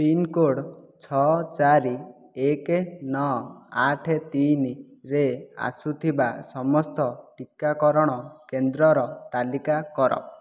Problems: none marked